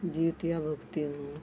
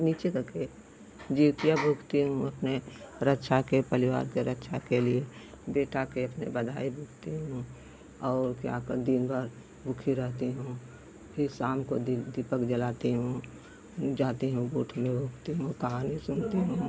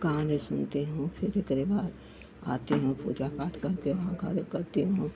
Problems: none marked